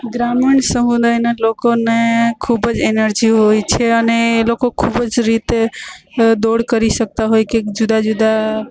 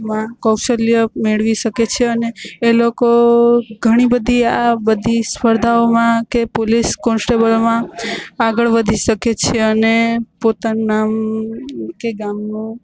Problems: constant background noise